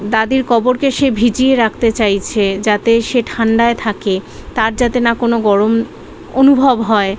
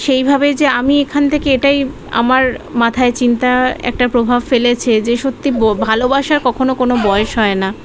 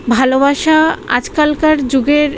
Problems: background conversations at intervals